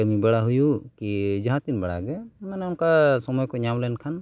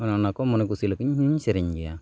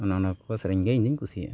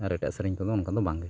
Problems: none marked